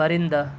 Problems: none marked